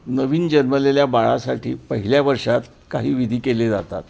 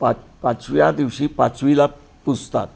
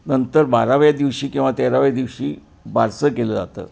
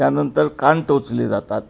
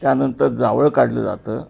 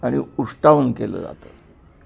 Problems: constant background noise